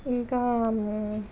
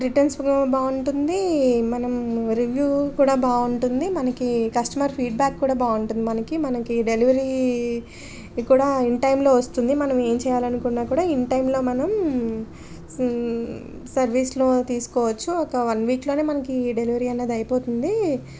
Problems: none marked